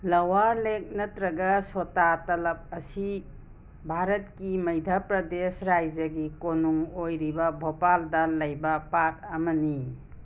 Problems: constant background noise